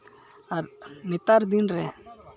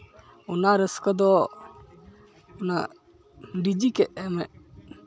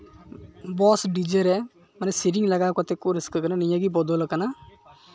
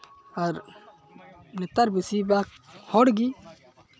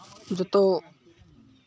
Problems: none marked